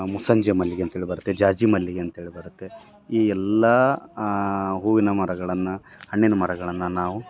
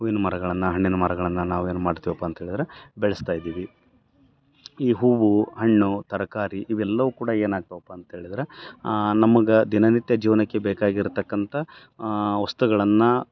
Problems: none marked